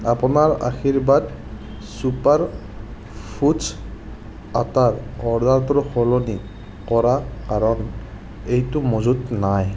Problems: constant background noise